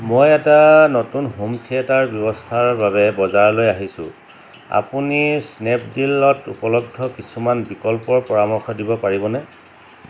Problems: none marked